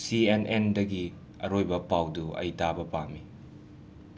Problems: none marked